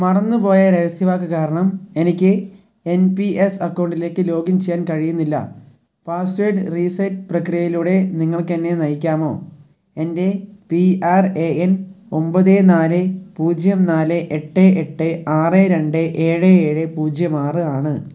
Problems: low volume